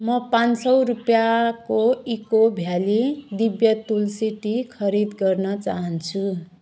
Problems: background sounds at intervals